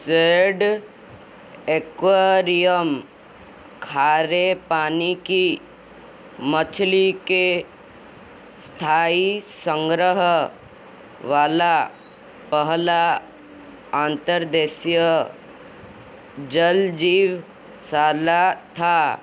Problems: constant background noise